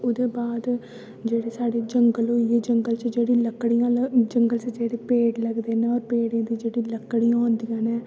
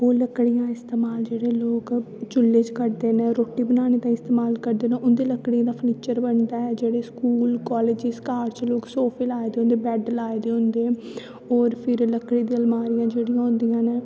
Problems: constant background noise, echo